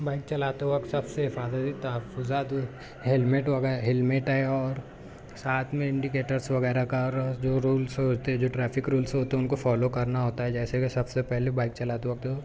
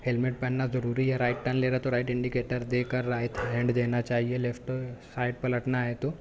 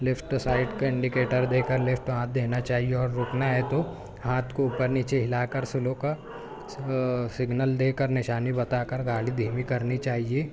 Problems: none marked